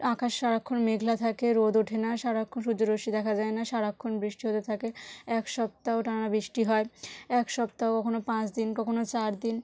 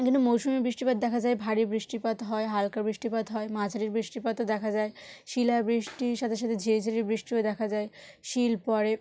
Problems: none marked